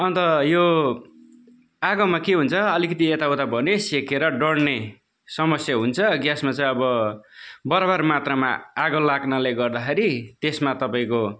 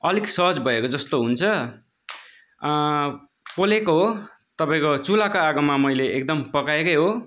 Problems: background conversations at intervals